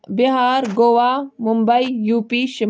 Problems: background sounds at intervals